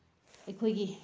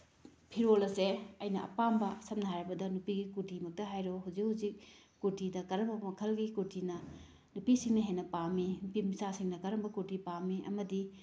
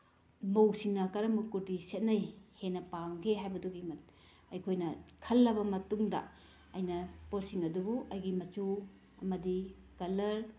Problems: none marked